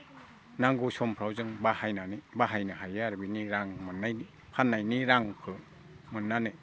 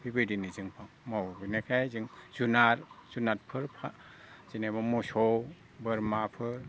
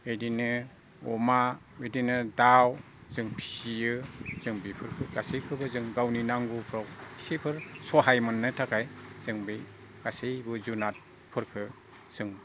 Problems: constant background noise